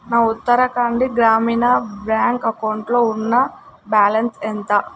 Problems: constant background noise